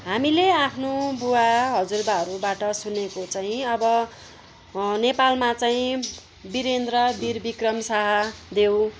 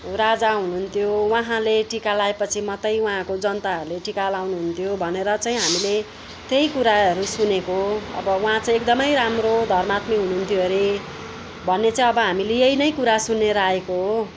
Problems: background sounds at intervals, background conversations at intervals